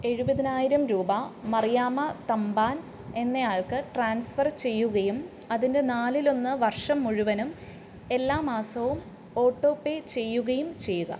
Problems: background sounds at intervals